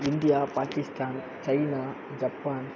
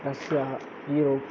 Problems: none marked